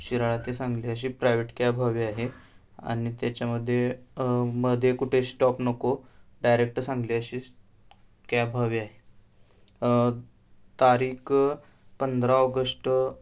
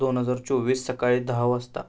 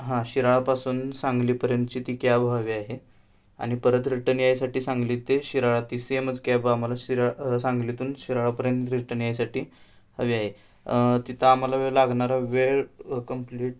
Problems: background sounds at intervals